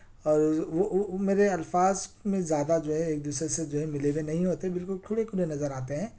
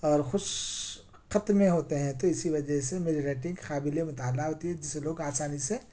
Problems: none marked